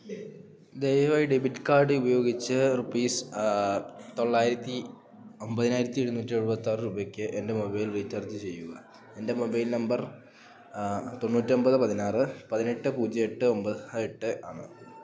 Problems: low volume